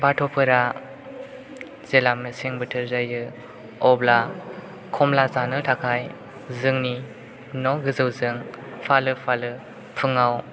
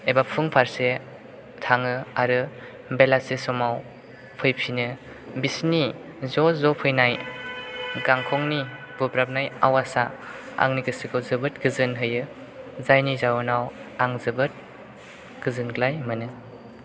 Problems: constant background noise